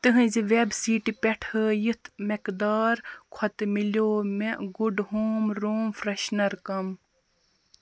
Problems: constant background noise